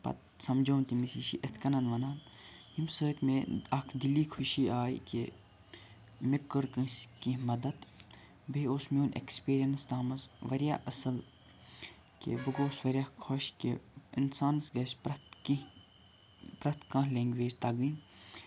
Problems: none marked